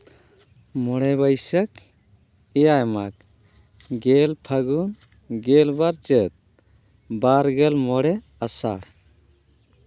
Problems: none marked